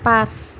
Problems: constant background noise, background conversations at intervals